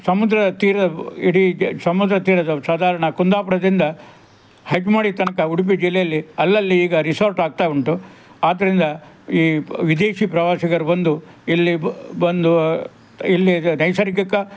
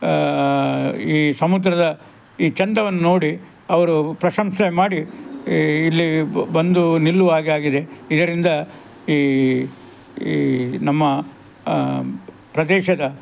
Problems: background sounds at intervals, background conversations at intervals